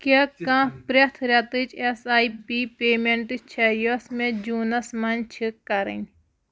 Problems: background sounds at intervals